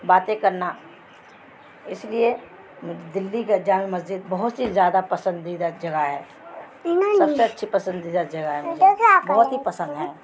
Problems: constant background noise